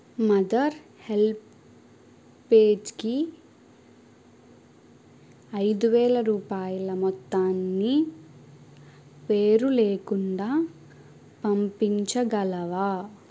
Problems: none marked